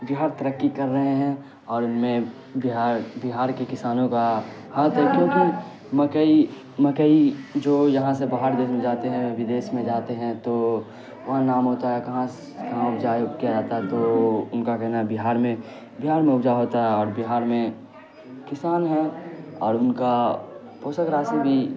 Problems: constant background noise